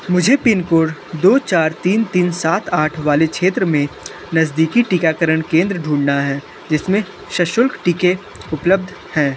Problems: constant background noise